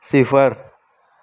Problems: none marked